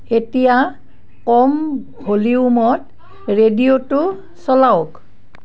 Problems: background conversations at intervals